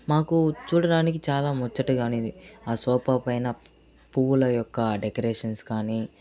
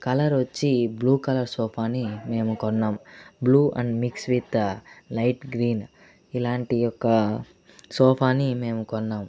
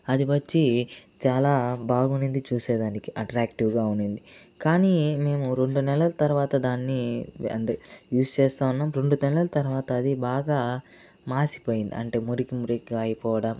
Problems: constant background noise